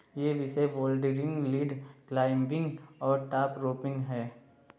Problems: constant background noise, low volume